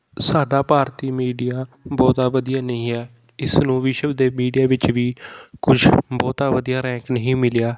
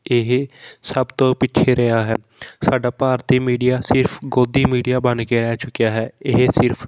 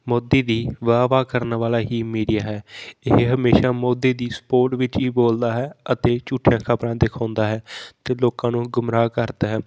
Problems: constant background noise